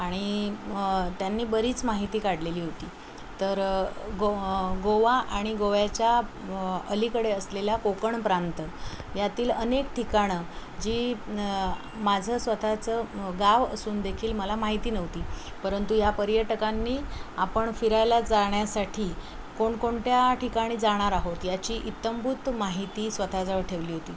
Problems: constant background noise